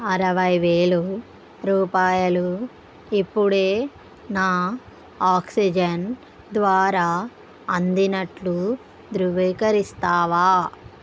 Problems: none marked